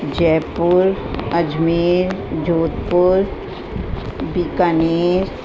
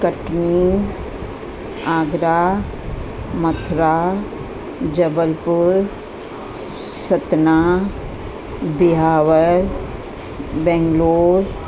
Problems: constant background noise